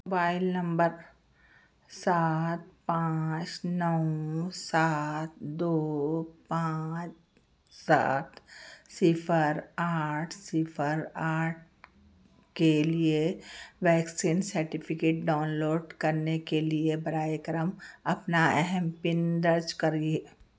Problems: none marked